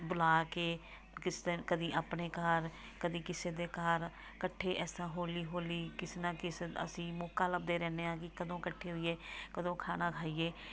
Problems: background sounds at intervals, background conversations at intervals